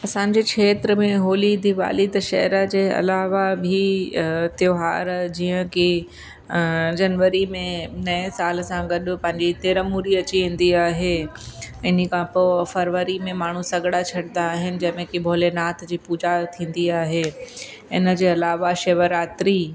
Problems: constant background noise, echo